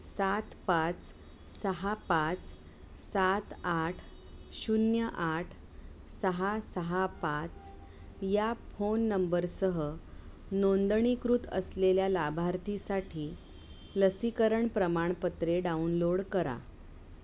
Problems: constant background noise